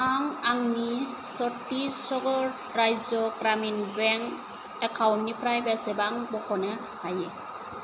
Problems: constant background noise